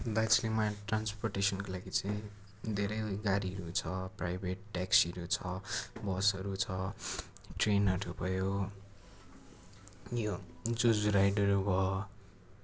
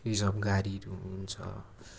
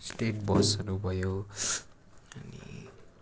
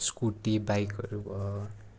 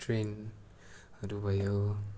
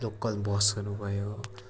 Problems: none marked